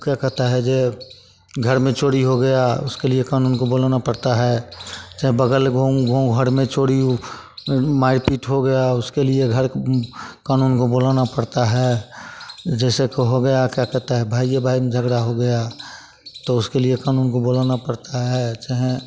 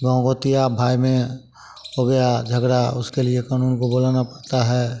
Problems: constant background noise, continuous background conversations